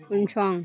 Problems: background sounds at intervals